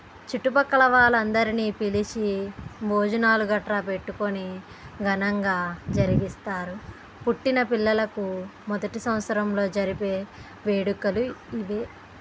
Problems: none marked